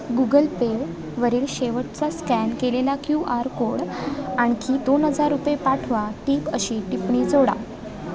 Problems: continuous background conversations